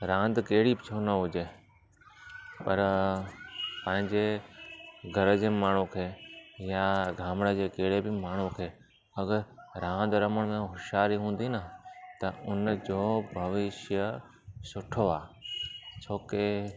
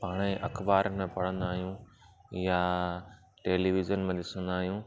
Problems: constant background noise